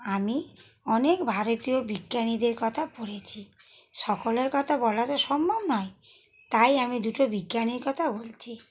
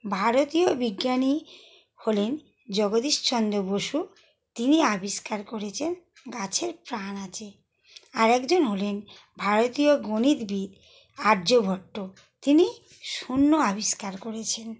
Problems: background sounds at intervals